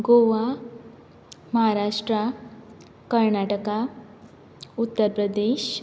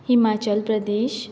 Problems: background sounds at intervals